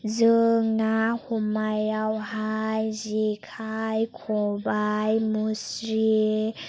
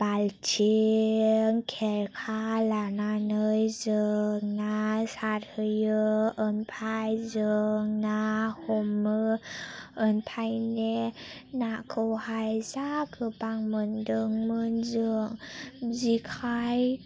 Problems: low volume